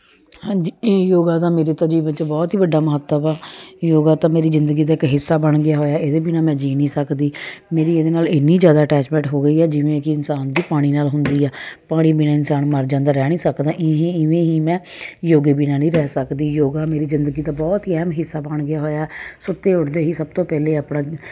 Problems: none marked